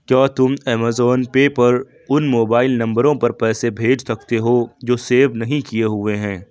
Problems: none marked